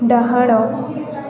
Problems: none marked